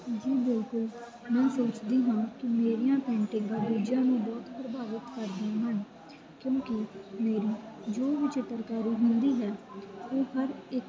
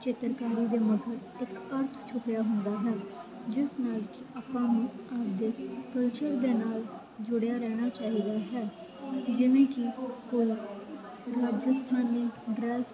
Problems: constant background noise